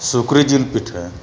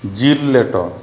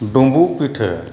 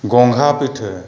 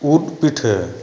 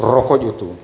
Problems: background sounds at intervals